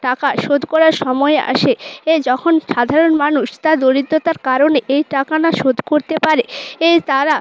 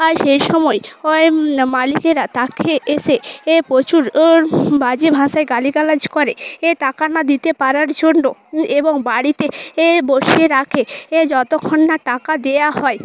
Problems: constant background noise